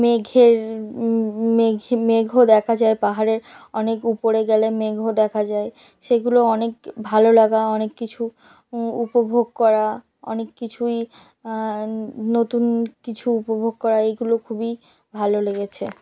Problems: constant background noise